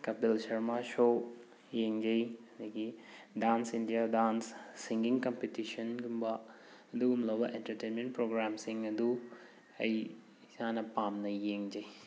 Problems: background sounds at intervals